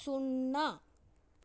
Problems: low volume